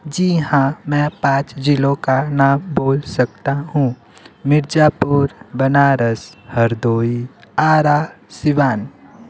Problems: constant background noise